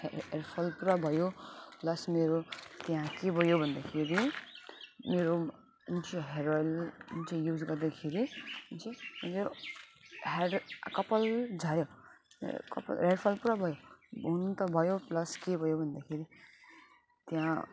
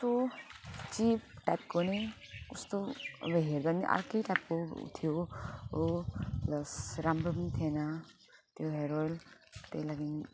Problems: constant background noise, continuous background conversations